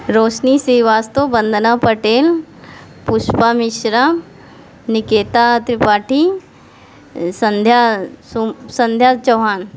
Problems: background sounds at intervals